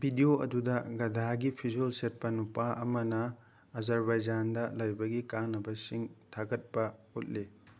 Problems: none marked